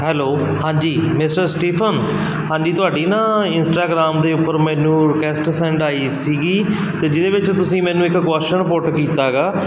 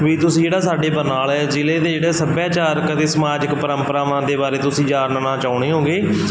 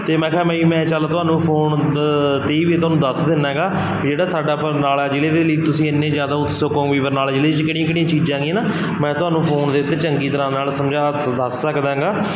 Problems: constant background noise